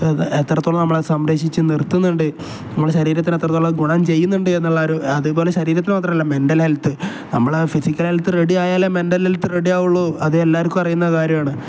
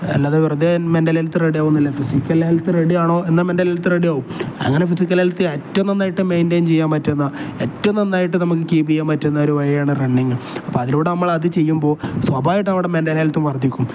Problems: none marked